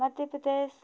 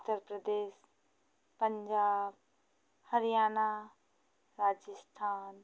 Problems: constant background noise